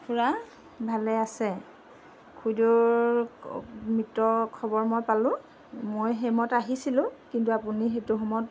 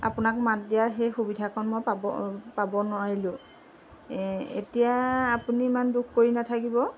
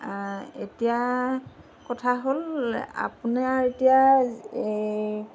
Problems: constant background noise